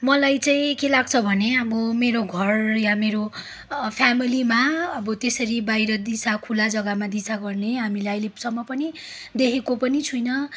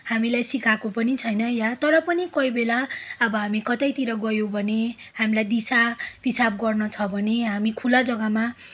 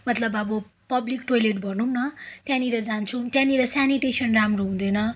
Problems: background sounds at intervals